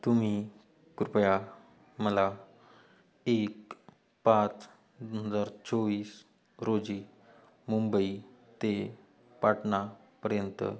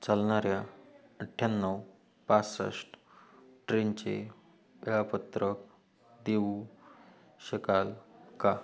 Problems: none marked